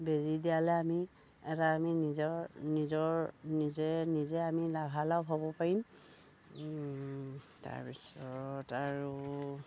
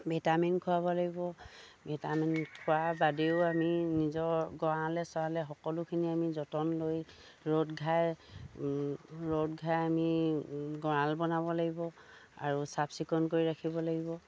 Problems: low volume